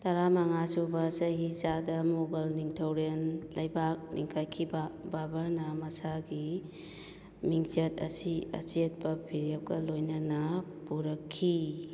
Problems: none marked